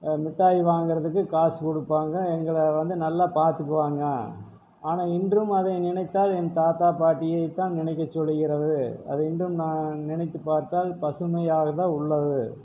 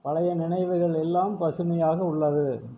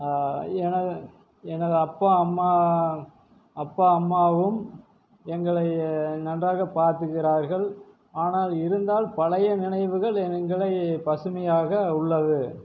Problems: none marked